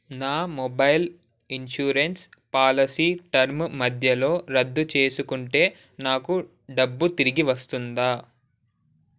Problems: none marked